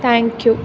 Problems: constant background noise